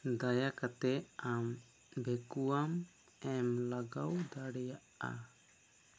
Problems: low volume